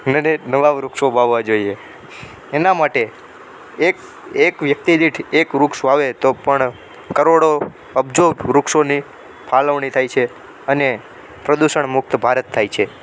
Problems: none marked